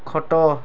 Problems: none marked